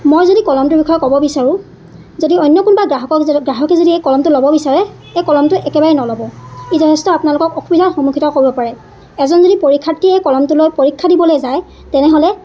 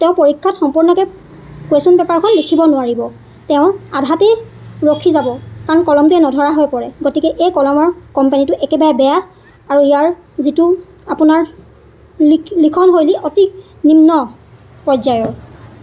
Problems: constant background noise